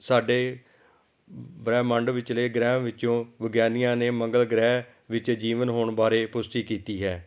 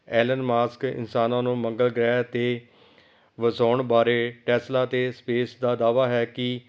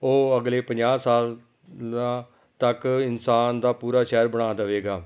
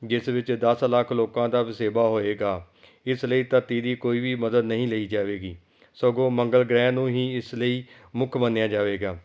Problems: background sounds at intervals